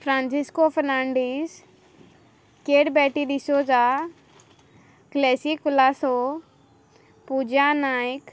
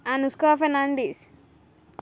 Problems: background sounds at intervals